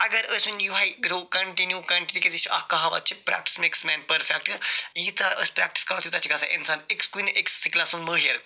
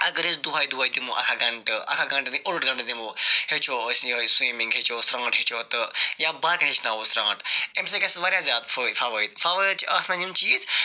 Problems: none marked